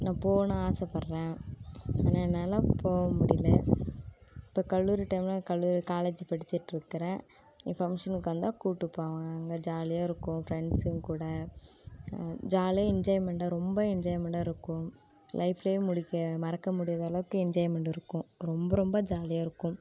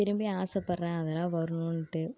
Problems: constant background noise